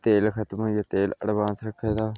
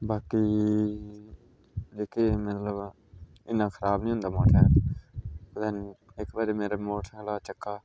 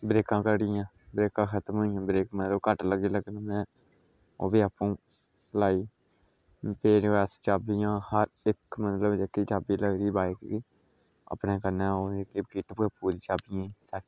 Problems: low volume